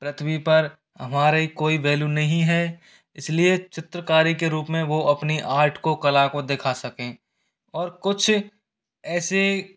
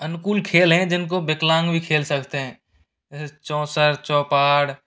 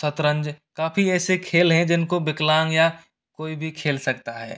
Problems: none marked